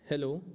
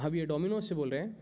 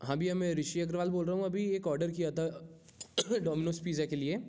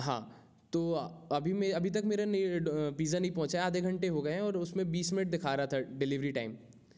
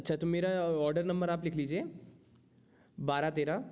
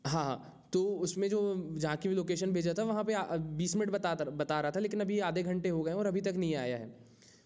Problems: none marked